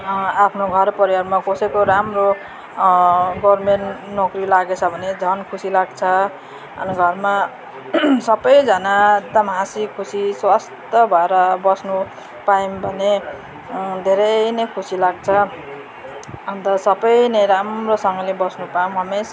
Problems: none marked